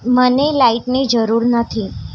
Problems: constant background noise